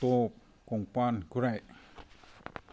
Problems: background sounds at intervals